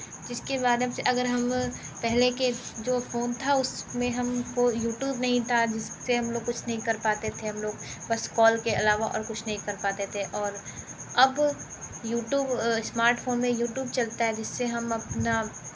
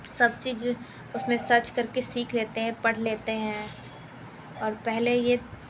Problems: constant background noise